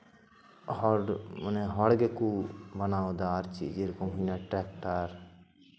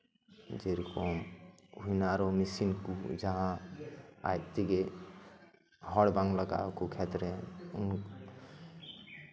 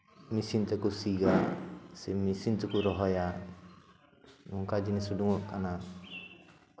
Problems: none marked